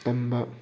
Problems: background sounds at intervals